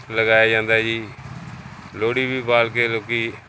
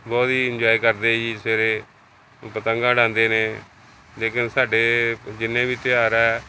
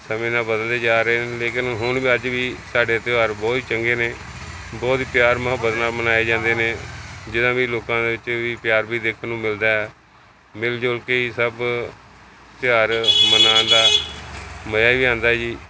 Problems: constant background noise